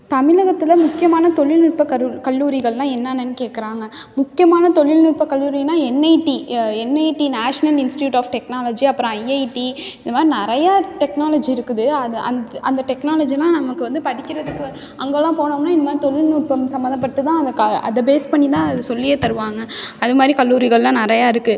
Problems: none marked